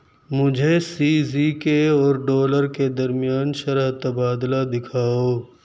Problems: none marked